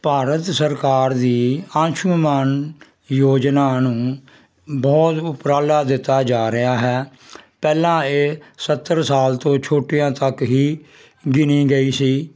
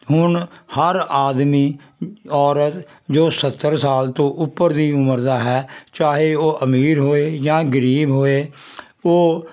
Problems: constant background noise